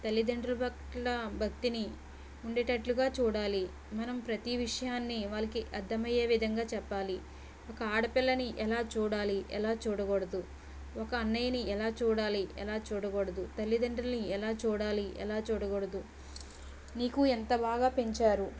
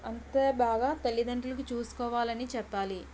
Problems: constant background noise